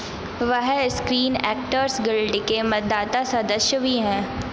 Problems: none marked